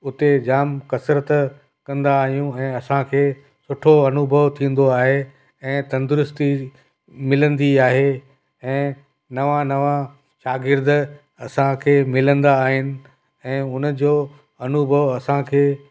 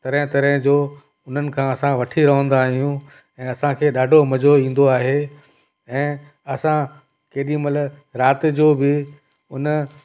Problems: constant background noise